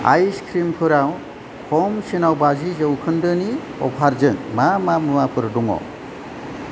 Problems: constant background noise